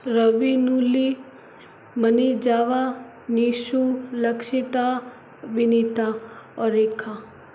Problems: constant background noise